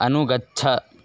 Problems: none marked